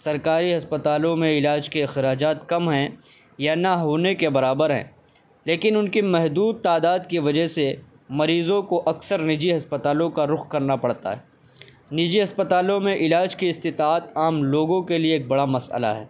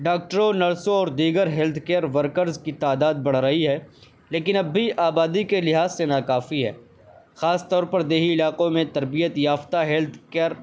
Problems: constant background noise